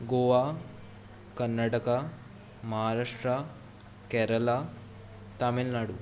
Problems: continuous background conversations